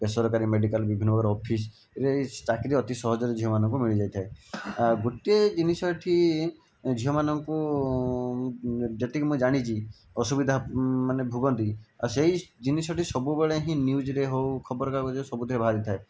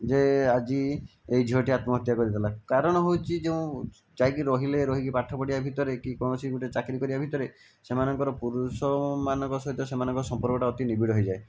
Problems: background sounds at intervals